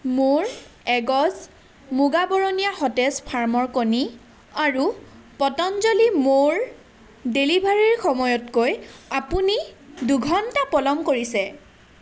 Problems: constant background noise